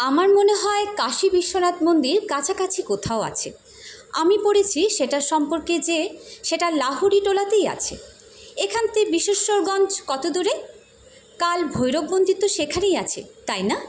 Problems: constant background noise